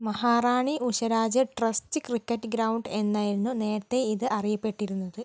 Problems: none marked